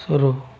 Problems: low volume